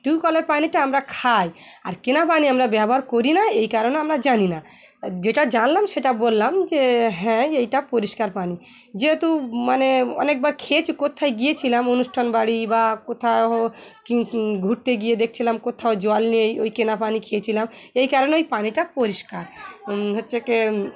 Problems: none marked